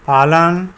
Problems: constant background noise